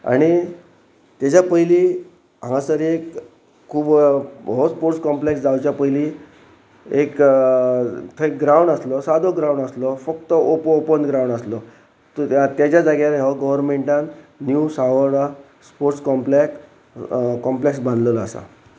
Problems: none marked